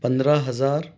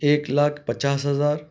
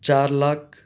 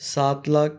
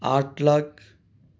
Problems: none marked